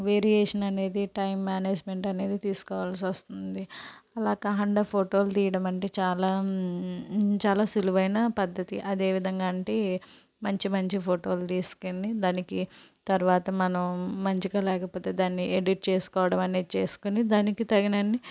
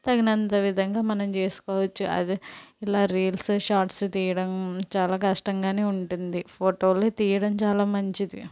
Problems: none marked